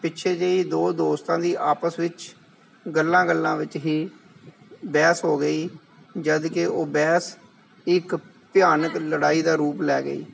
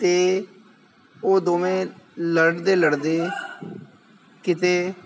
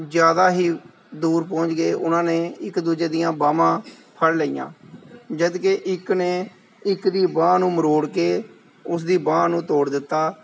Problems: background conversations at intervals